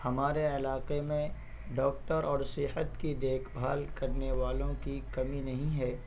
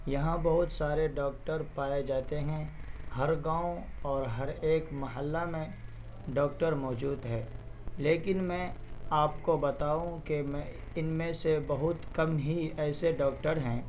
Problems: constant background noise